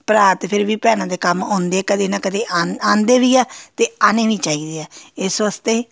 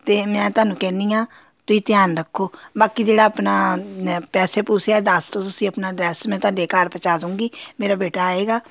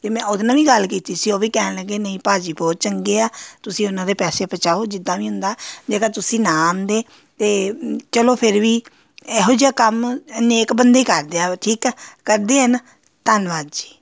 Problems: none marked